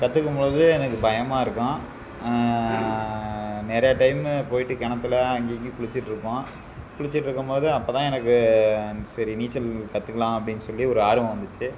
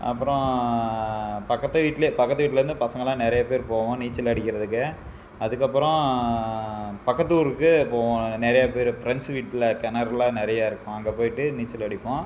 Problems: constant background noise